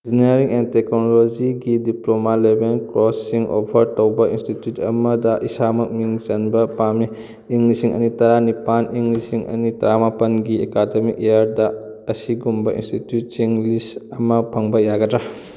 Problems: none marked